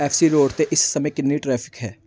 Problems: background sounds at intervals